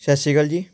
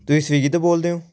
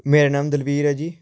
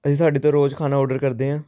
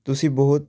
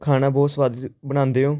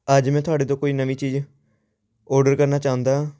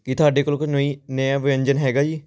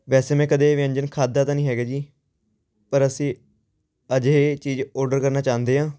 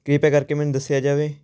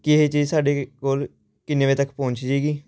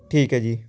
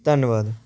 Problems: constant background noise